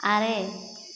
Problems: constant background noise, echo